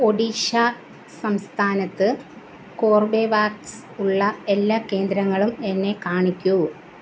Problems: constant background noise